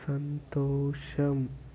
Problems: none marked